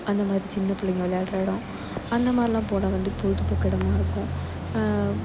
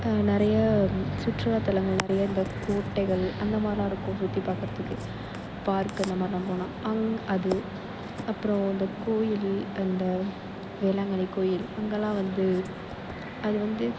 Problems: constant background noise, echo